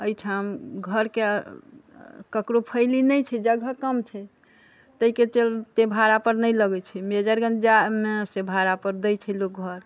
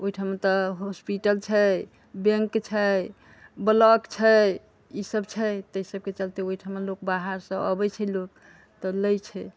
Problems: background conversations at intervals